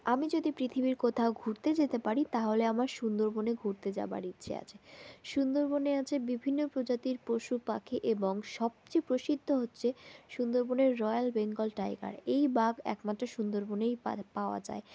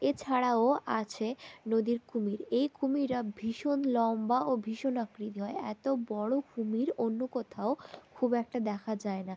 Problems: constant background noise